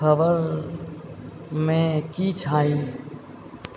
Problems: background sounds at intervals